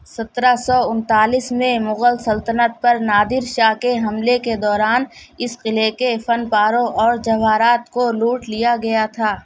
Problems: none marked